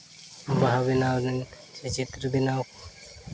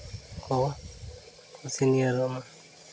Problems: none marked